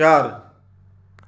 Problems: none marked